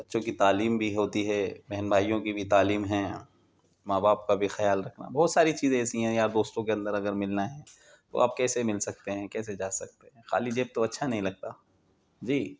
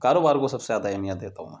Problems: constant background noise